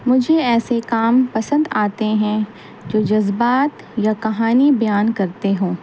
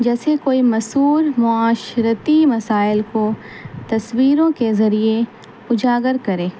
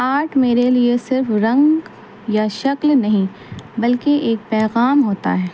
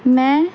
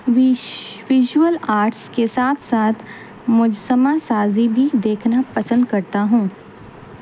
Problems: constant background noise